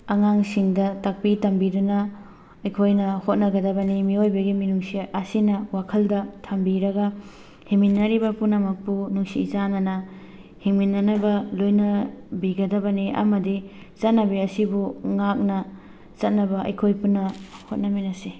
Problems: background sounds at intervals, background conversations at intervals